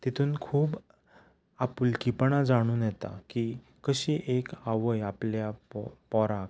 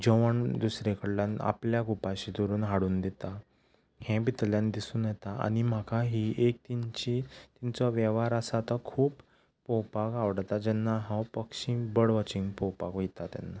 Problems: background sounds at intervals, background conversations at intervals